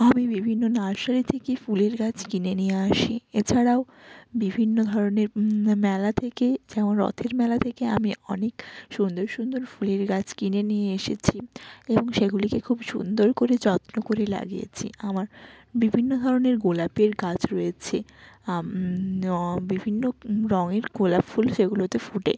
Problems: background sounds at intervals